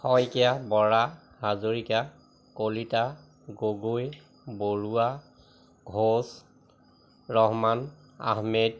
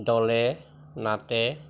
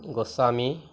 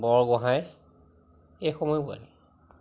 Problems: constant background noise